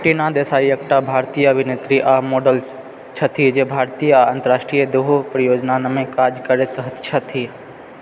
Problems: background sounds at intervals